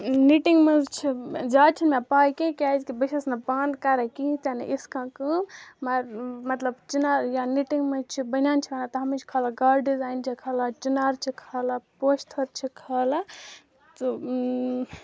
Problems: constant background noise